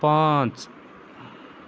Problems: constant background noise